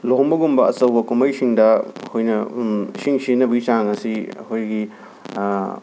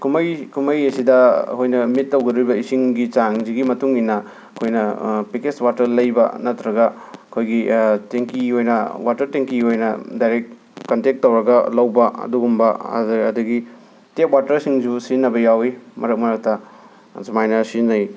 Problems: background sounds at intervals